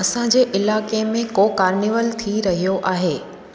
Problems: constant background noise, echo